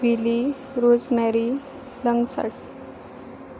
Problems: background sounds at intervals